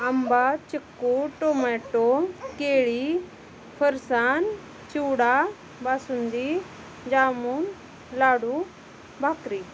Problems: constant background noise, continuous background conversations